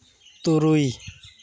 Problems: constant background noise